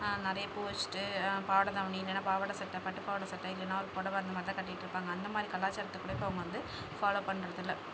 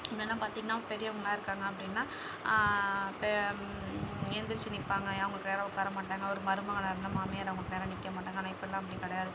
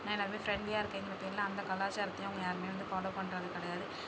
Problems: background sounds at intervals